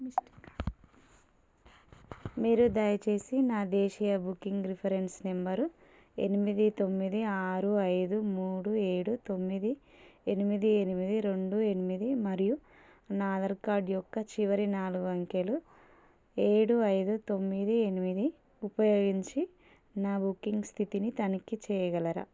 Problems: none marked